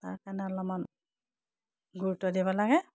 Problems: low volume